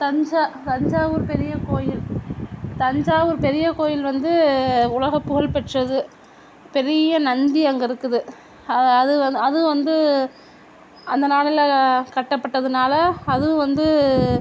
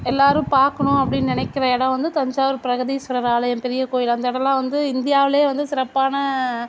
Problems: none marked